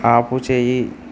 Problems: constant background noise